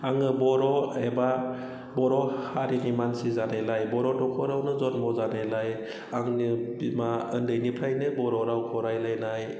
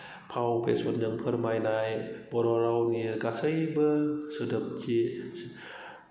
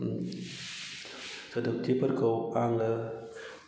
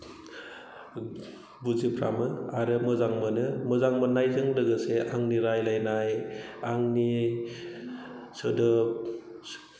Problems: low volume